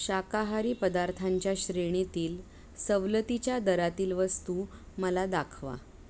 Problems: background sounds at intervals